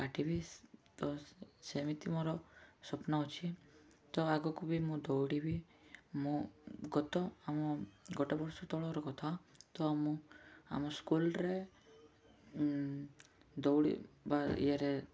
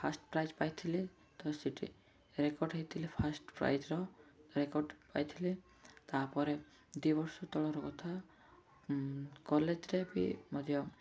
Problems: none marked